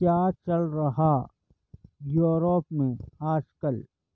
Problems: none marked